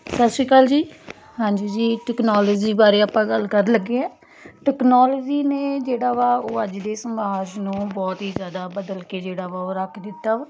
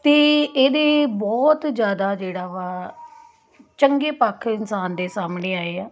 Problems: constant background noise